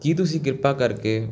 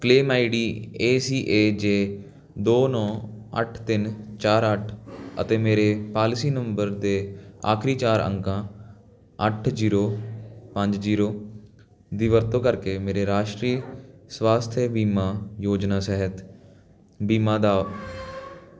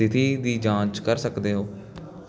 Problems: background conversations at intervals